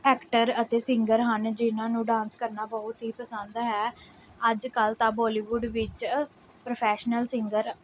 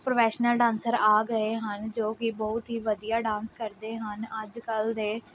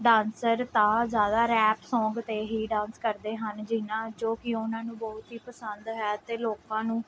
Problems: background sounds at intervals